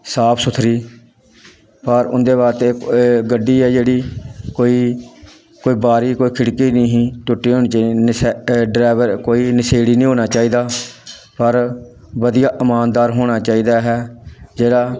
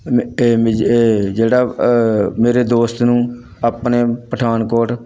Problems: background sounds at intervals, background conversations at intervals